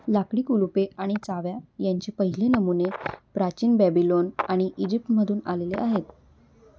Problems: none marked